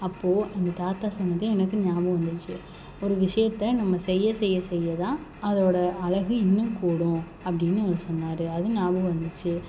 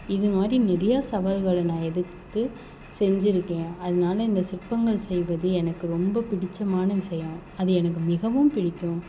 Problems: background sounds at intervals